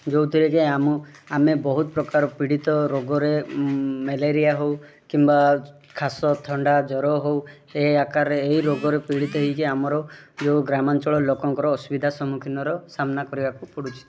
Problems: background sounds at intervals, background conversations at intervals